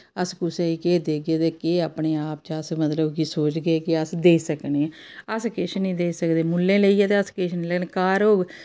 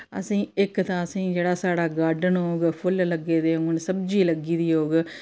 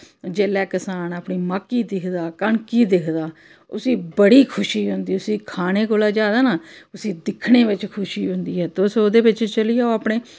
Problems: none marked